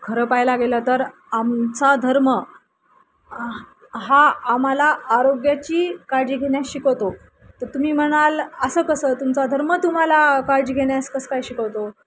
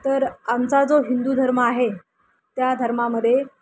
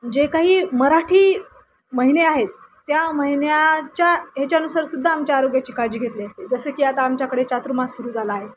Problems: constant background noise